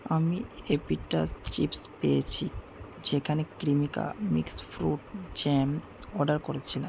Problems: constant background noise